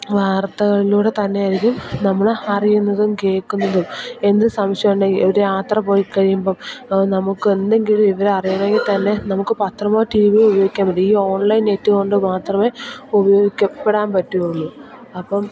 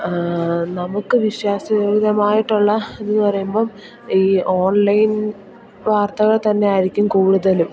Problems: none marked